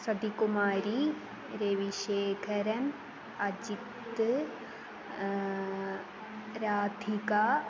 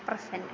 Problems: constant background noise